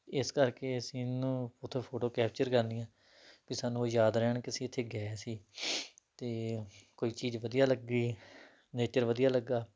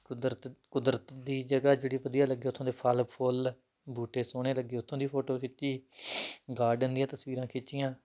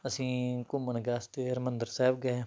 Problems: background sounds at intervals